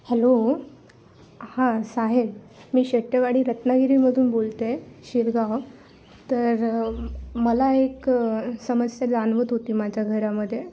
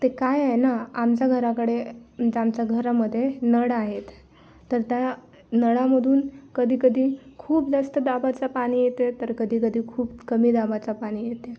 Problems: background sounds at intervals